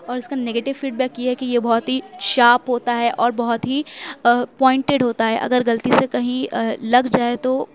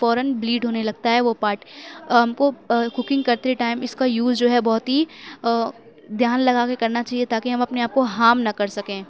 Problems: constant background noise